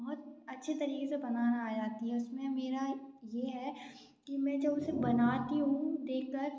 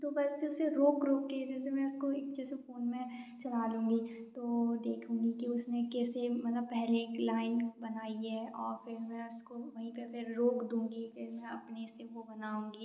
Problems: background sounds at intervals